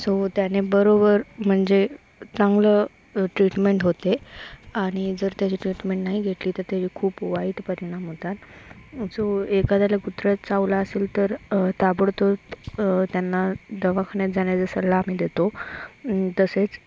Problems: constant background noise